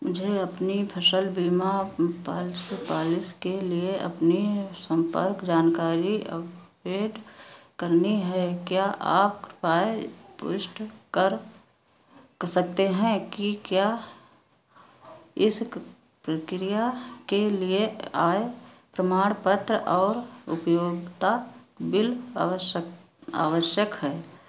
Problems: constant background noise